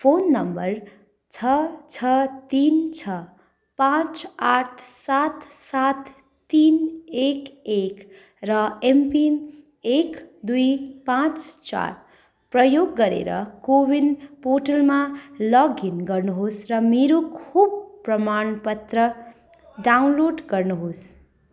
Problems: constant background noise, background conversations at intervals